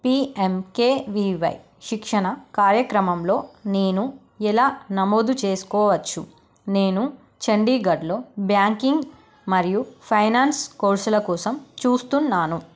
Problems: none marked